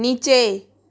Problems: background sounds at intervals